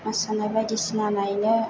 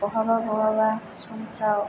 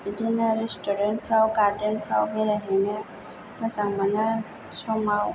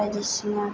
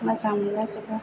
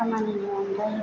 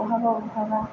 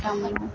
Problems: low volume